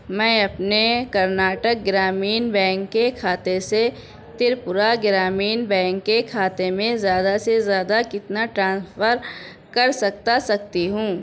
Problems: constant background noise, background conversations at intervals